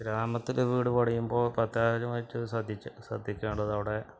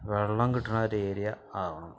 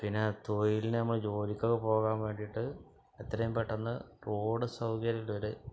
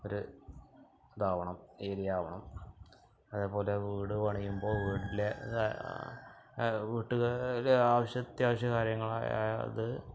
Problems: background sounds at intervals, low volume